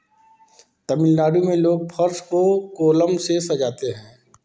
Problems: none marked